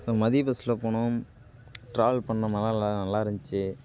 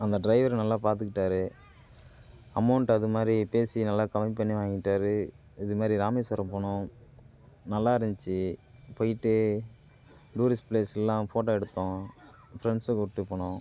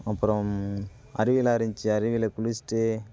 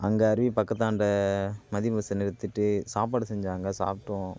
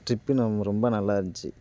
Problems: none marked